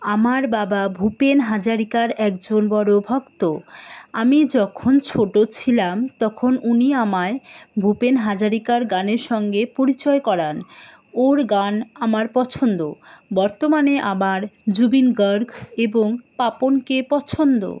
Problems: none marked